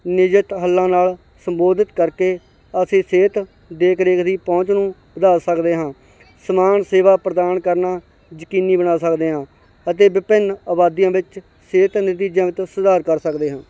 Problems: background sounds at intervals